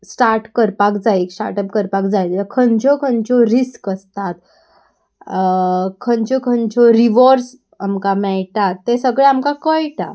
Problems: constant background noise